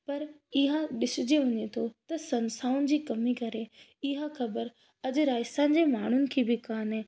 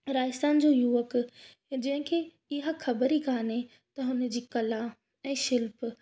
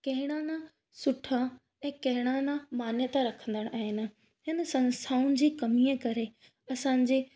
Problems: none marked